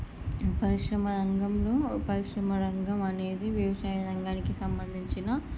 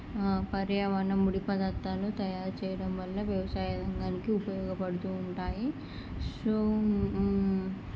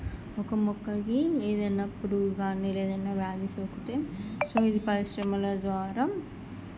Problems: low volume